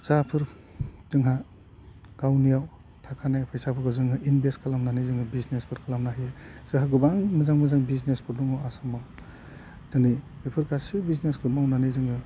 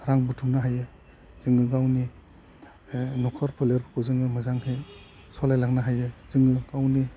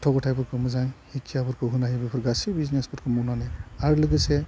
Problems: low volume